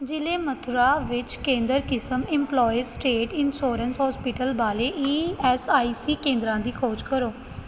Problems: constant background noise